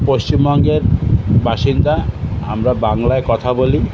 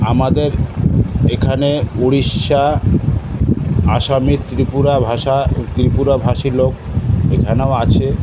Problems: constant background noise